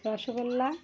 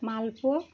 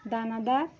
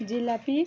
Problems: none marked